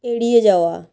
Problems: constant background noise